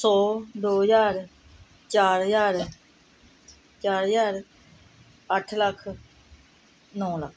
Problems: none marked